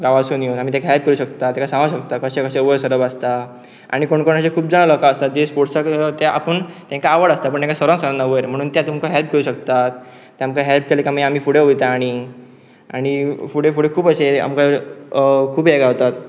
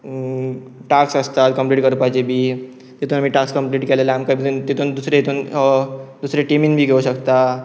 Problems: constant background noise